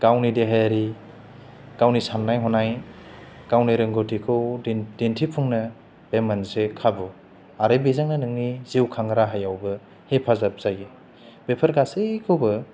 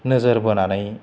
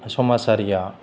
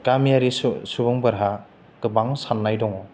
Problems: low volume